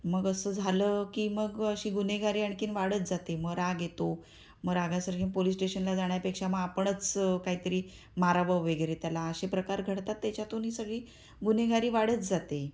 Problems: constant background noise